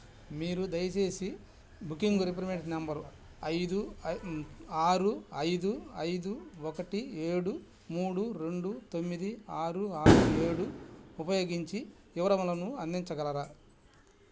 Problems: background sounds at intervals